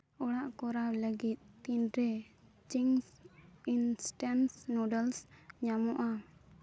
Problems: background sounds at intervals